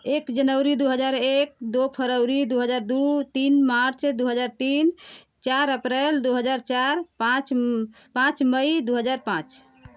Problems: none marked